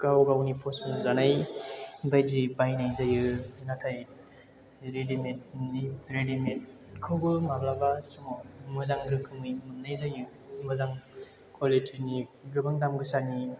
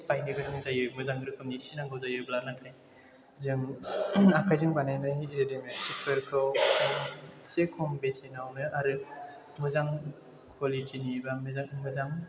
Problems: background sounds at intervals